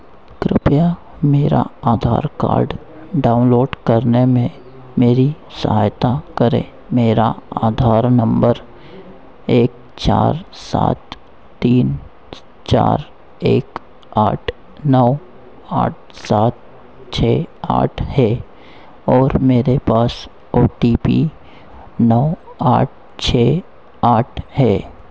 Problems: constant background noise